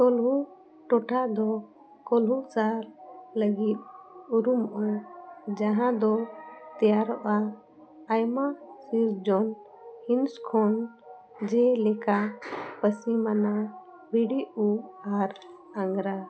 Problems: background sounds at intervals